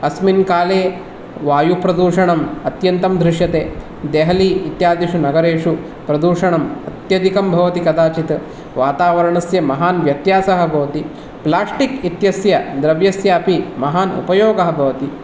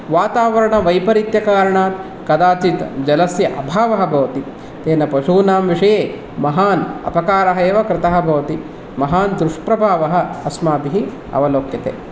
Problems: none marked